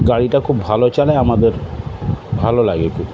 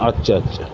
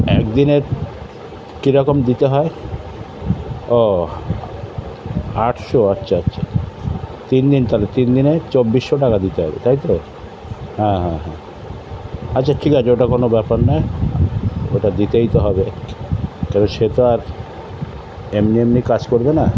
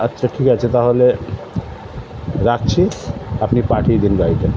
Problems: constant background noise